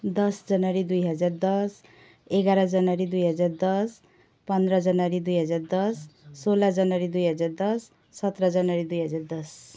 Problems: background sounds at intervals